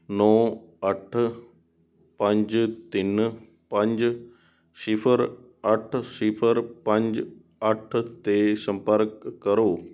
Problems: background sounds at intervals